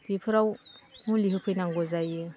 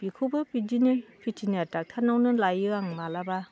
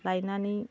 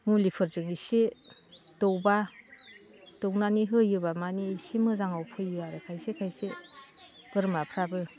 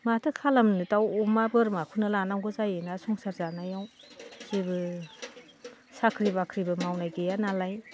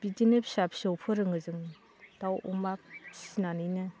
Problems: constant background noise